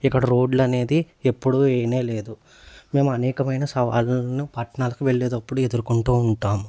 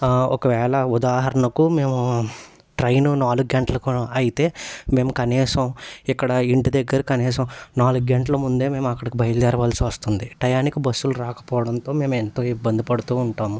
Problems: constant background noise